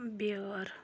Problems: low volume